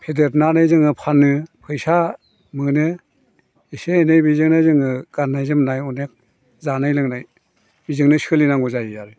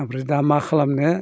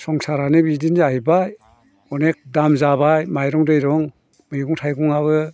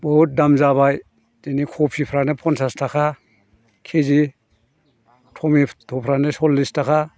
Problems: background conversations at intervals